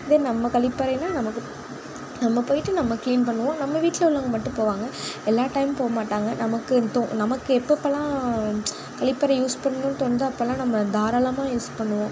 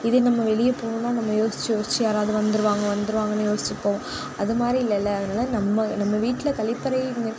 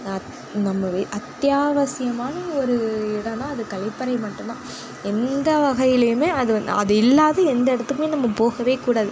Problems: background conversations at intervals